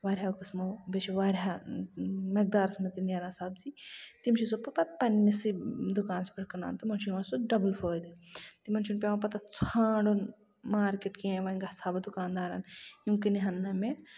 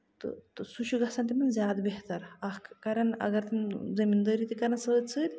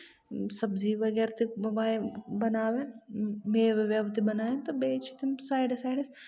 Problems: constant background noise